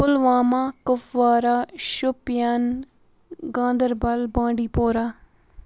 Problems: constant background noise